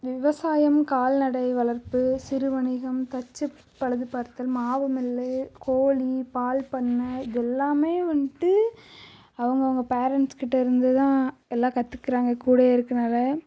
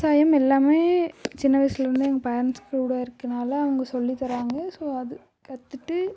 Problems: low volume